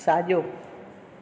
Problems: none marked